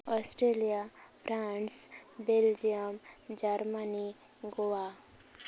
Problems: constant background noise